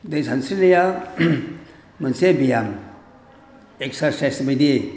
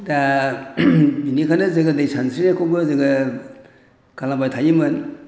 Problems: none marked